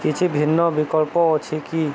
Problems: constant background noise